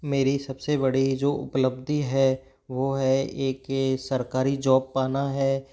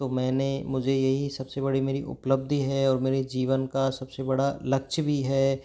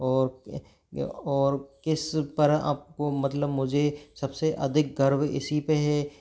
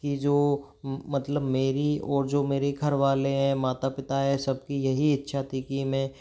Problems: background sounds at intervals